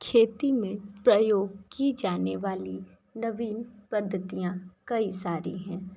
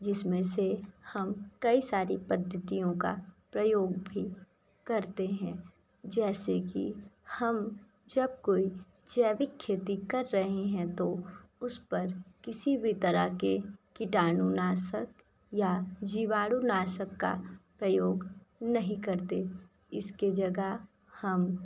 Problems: none marked